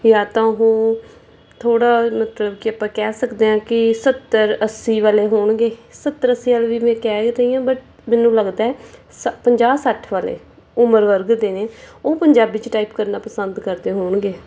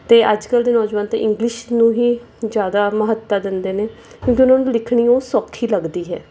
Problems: none marked